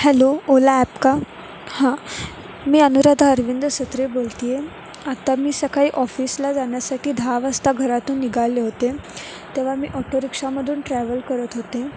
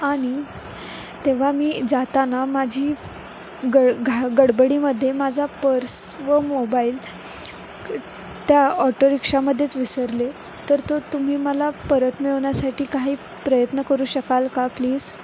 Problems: constant background noise